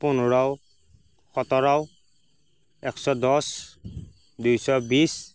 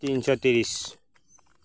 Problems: background sounds at intervals